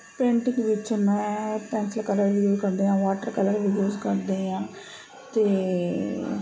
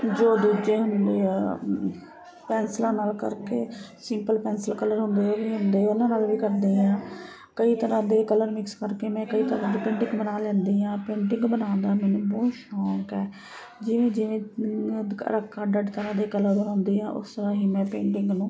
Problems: constant background noise